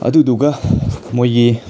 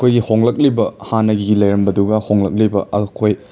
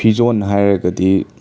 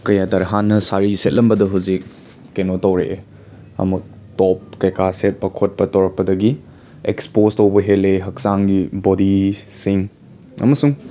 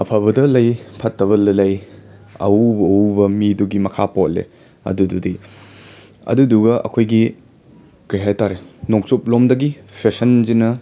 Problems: background sounds at intervals, background conversations at intervals